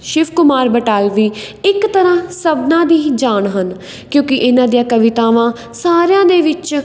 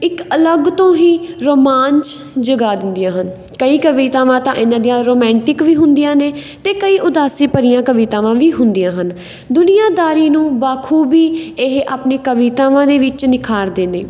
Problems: background sounds at intervals